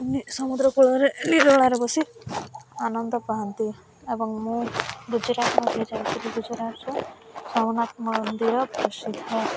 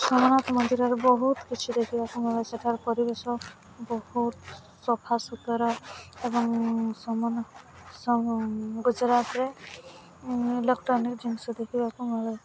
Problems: none marked